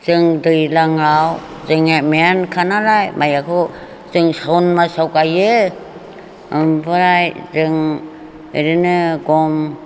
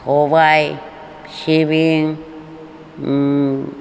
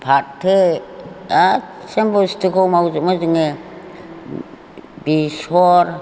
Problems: none marked